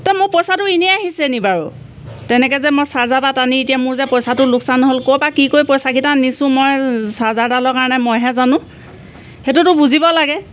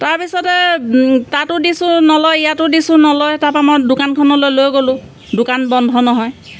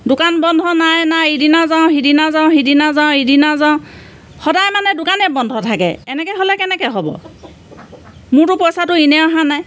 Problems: none marked